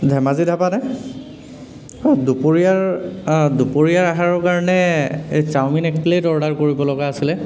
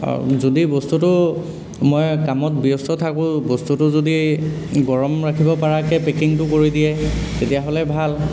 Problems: background sounds at intervals